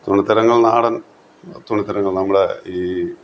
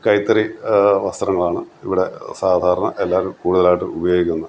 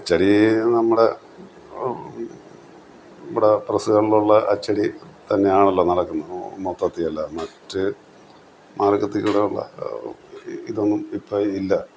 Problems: constant background noise